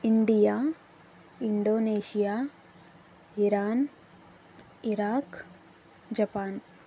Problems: constant background noise